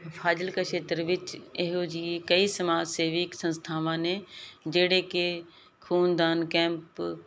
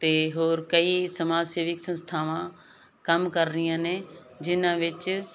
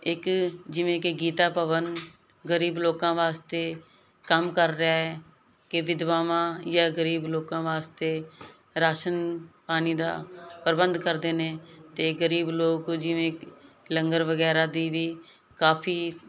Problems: none marked